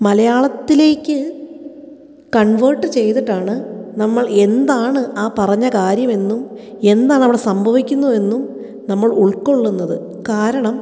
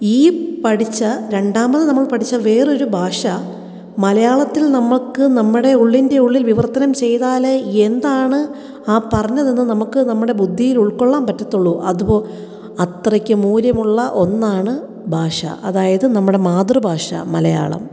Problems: echo